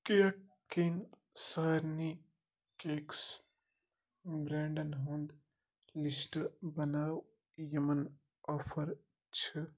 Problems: none marked